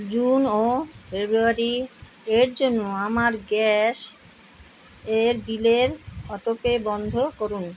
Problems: constant background noise